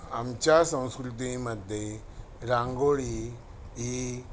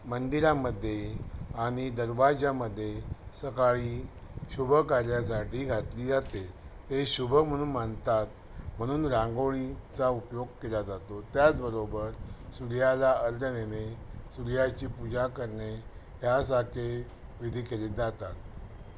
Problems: none marked